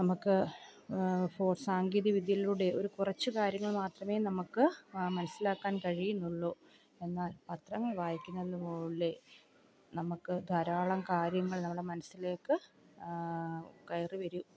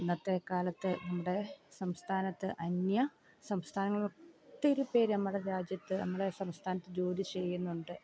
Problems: background sounds at intervals, low volume